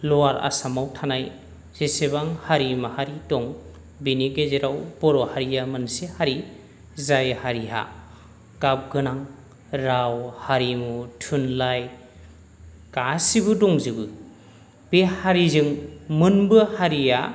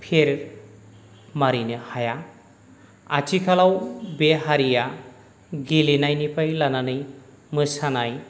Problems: none marked